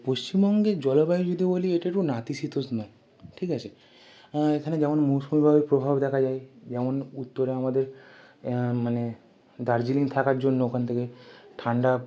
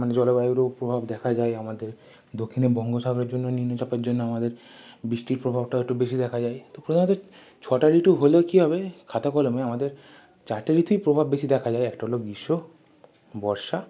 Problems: constant background noise